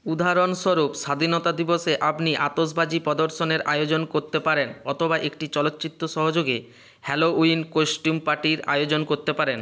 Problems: constant background noise